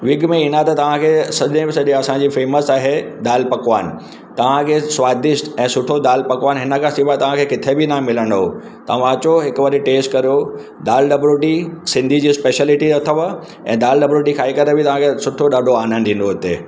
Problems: constant background noise, echo